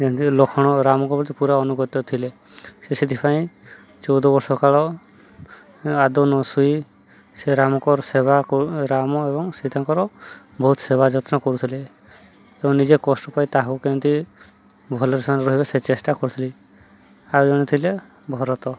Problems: none marked